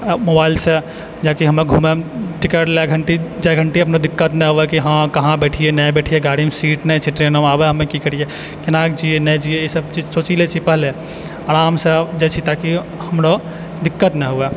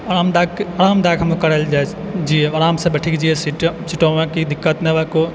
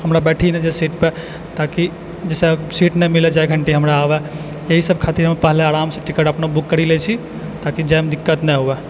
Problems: constant background noise